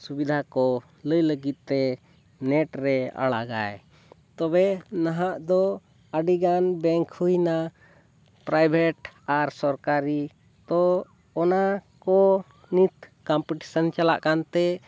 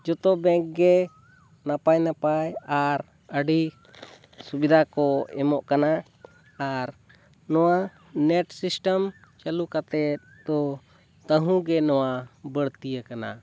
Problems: none marked